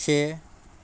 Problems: none marked